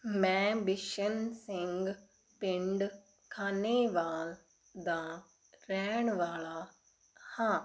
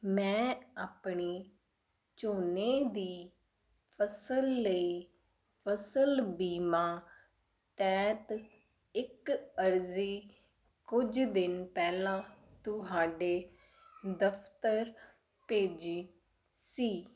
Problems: none marked